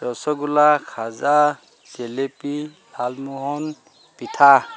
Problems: constant background noise, background conversations at intervals